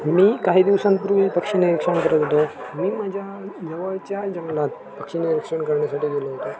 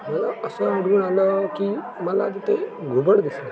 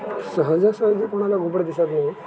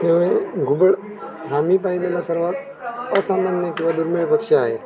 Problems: constant background noise, continuous background conversations